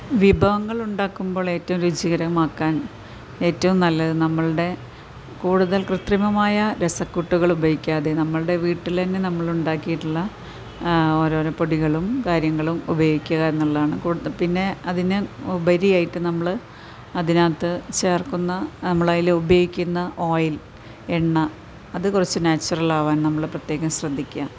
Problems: constant background noise